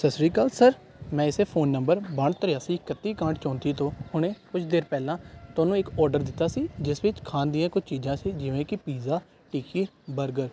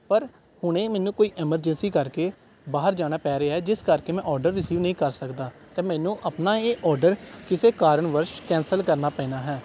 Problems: background sounds at intervals